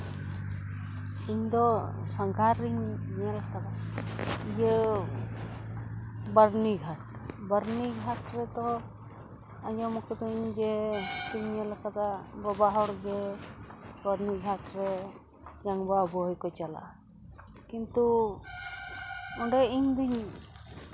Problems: background sounds at intervals